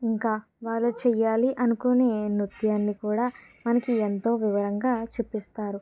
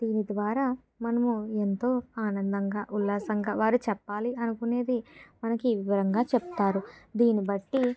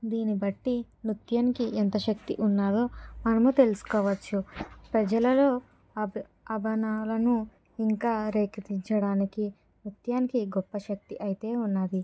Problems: background sounds at intervals